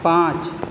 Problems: none marked